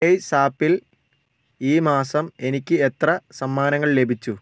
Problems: none marked